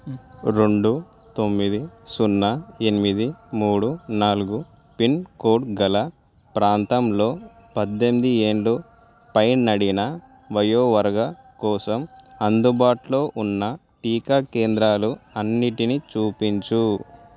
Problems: background sounds at intervals